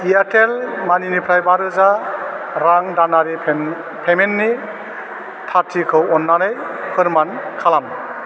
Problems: constant background noise